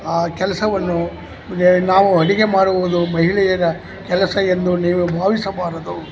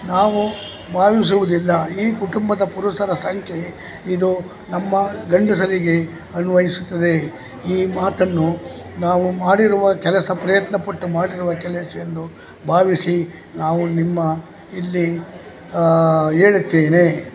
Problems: constant background noise, background conversations at intervals